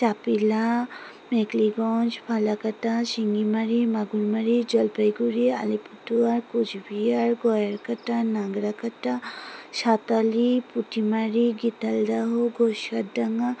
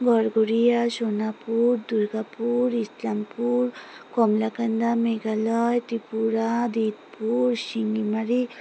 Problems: none marked